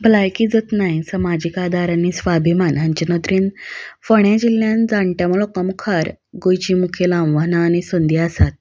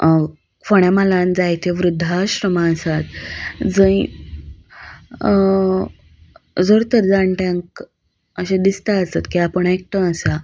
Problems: none marked